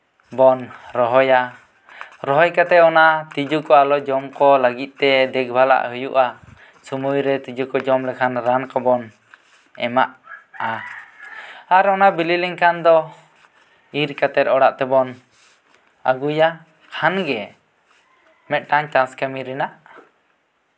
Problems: background sounds at intervals